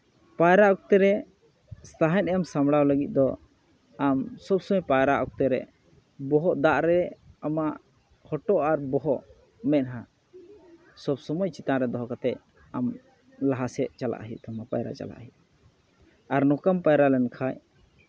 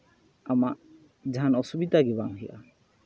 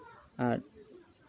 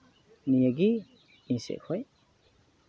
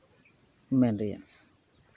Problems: background sounds at intervals, background conversations at intervals